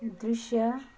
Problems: background conversations at intervals